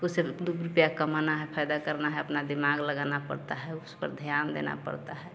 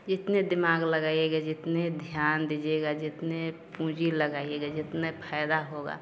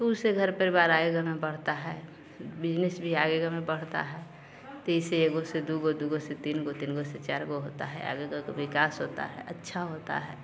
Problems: none marked